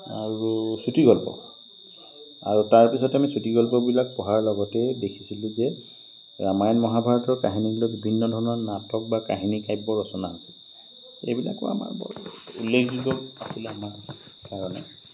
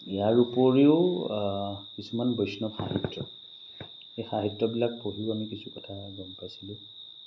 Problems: constant background noise, background conversations at intervals